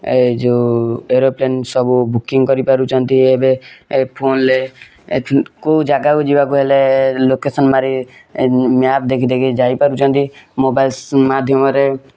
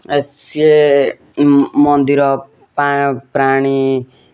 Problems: constant background noise